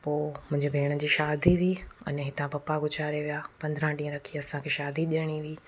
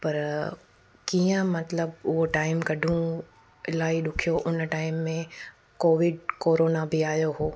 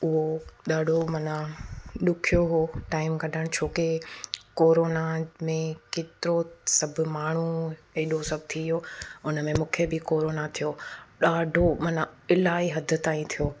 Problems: constant background noise